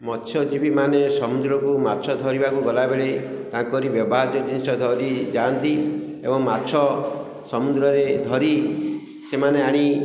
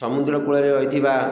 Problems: echo